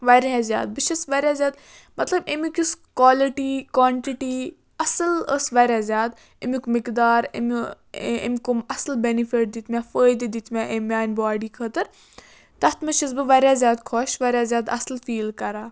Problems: background sounds at intervals